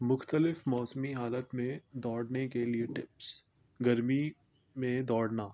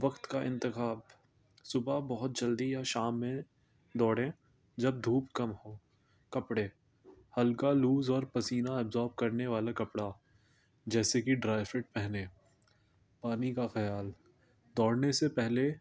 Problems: constant background noise